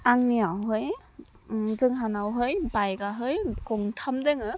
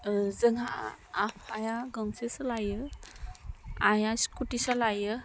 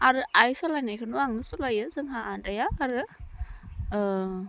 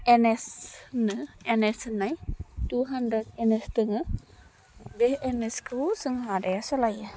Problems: none marked